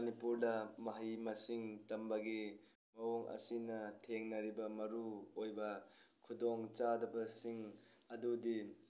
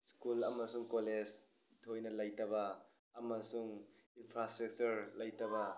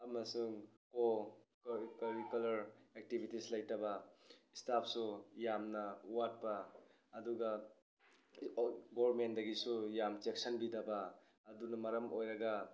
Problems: none marked